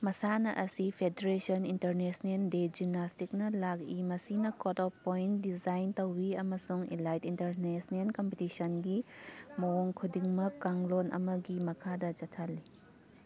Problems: background sounds at intervals